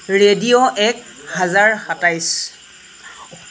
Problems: constant background noise